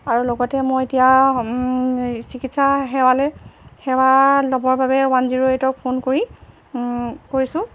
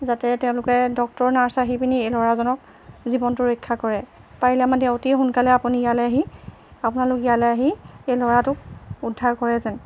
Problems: constant background noise